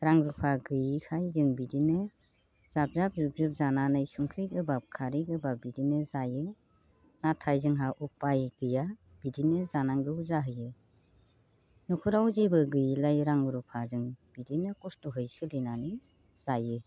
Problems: constant background noise